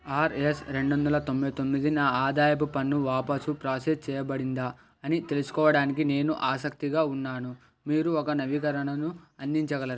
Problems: constant background noise